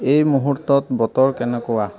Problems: background conversations at intervals